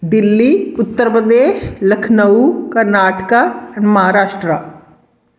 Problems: background sounds at intervals